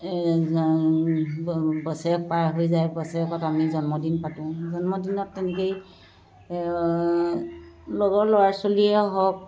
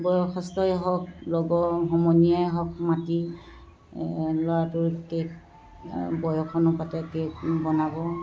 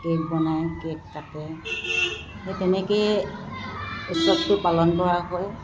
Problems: constant background noise